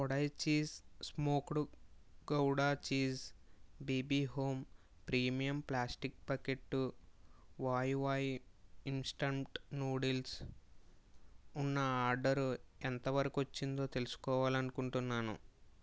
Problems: low volume